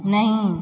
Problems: none marked